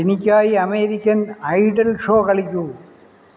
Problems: none marked